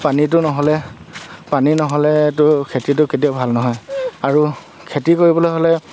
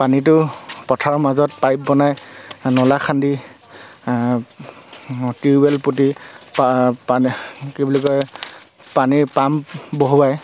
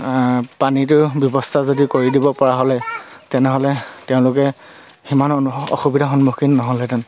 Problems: none marked